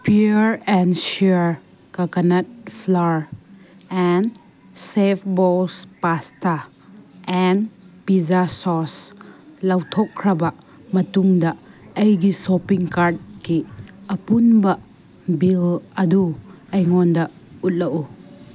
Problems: none marked